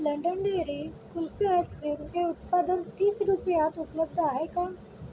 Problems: constant background noise